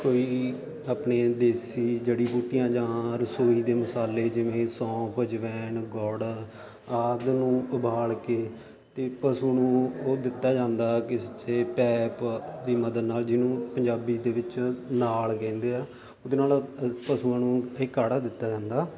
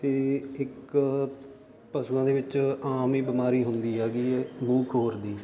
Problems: constant background noise